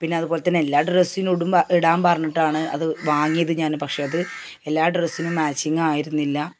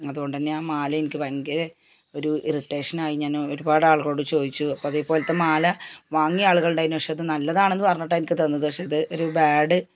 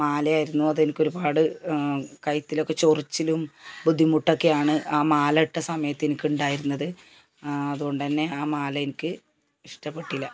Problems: background sounds at intervals